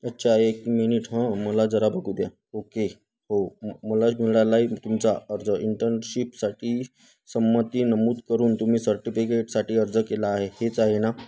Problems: constant background noise, background conversations at intervals